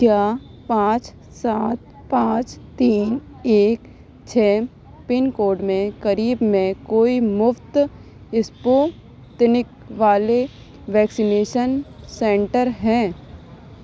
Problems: constant background noise, background conversations at intervals